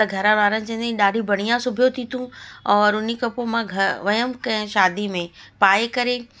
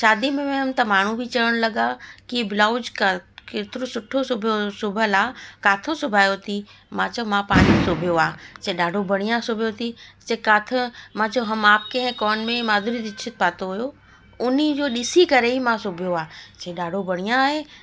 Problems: constant background noise